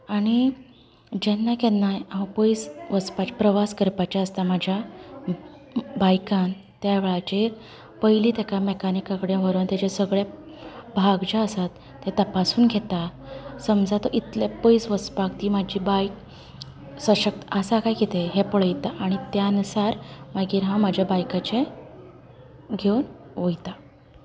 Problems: none marked